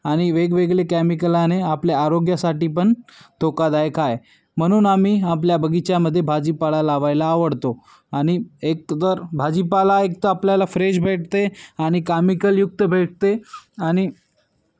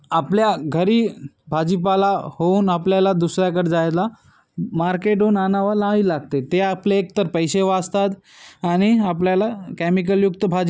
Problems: none marked